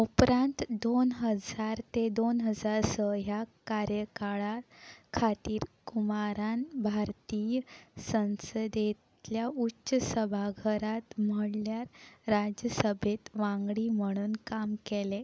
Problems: background sounds at intervals